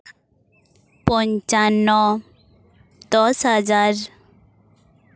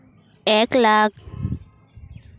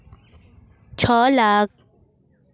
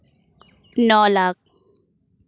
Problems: background sounds at intervals